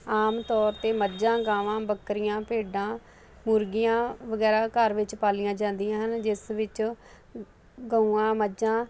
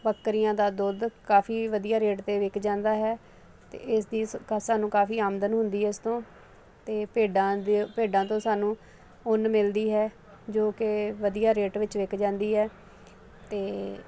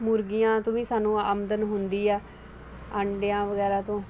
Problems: constant background noise